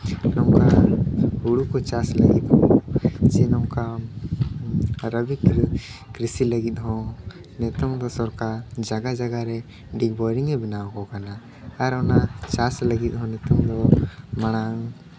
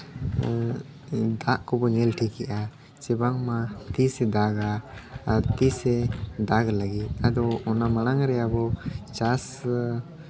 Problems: background sounds at intervals